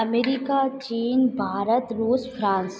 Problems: echo